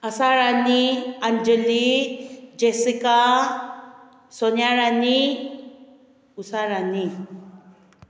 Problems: none marked